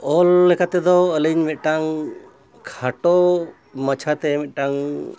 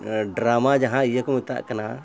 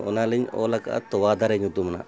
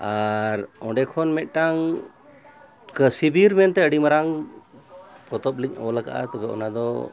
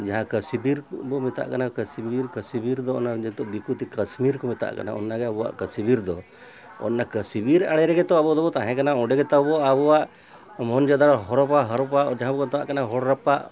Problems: constant background noise